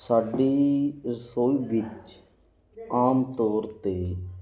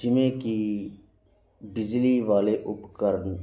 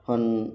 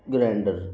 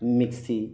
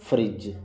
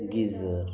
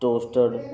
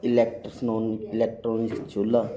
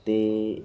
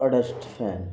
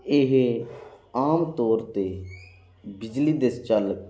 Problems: none marked